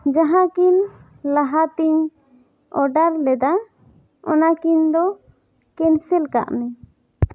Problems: none marked